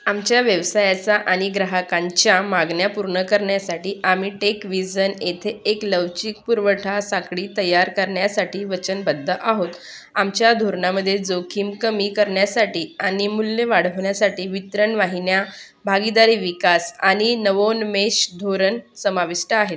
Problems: background sounds at intervals